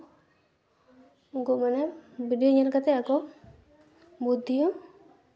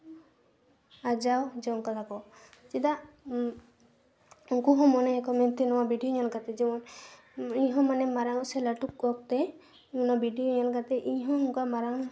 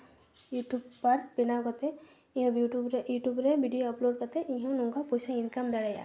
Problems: none marked